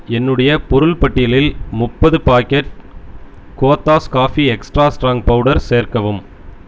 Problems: none marked